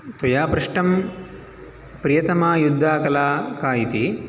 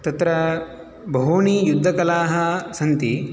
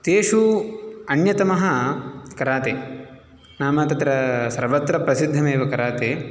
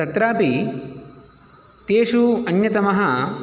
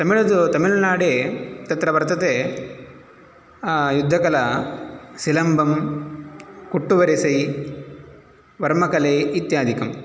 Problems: none marked